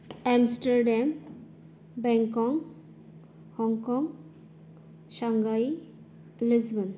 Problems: low volume